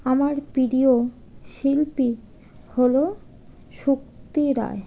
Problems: none marked